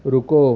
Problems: constant background noise, low volume